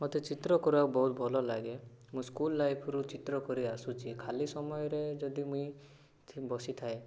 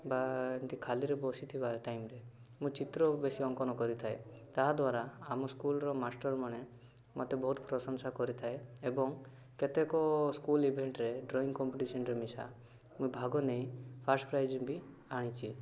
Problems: none marked